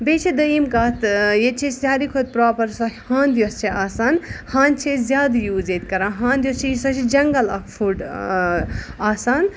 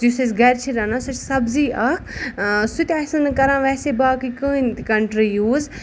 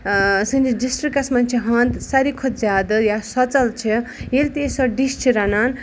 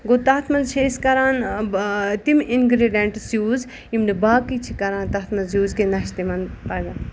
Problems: none marked